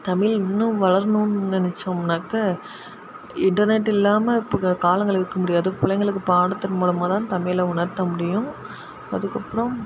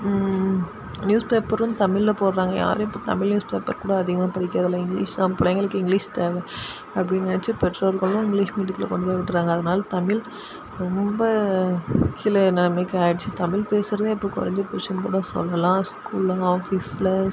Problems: constant background noise